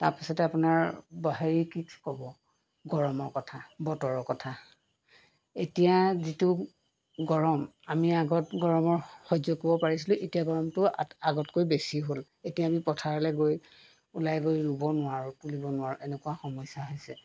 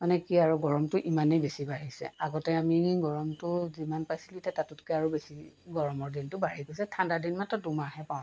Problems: background sounds at intervals